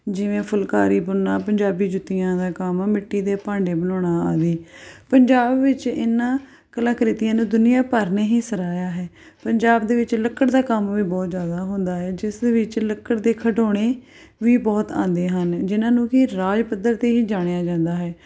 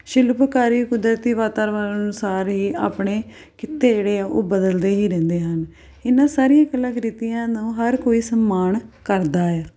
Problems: background sounds at intervals